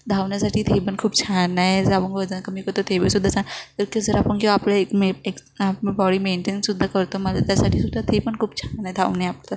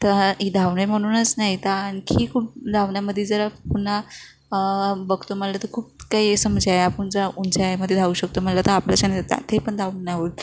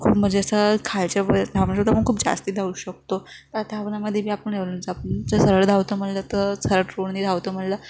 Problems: none marked